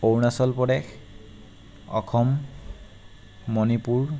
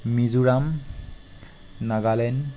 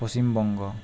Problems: constant background noise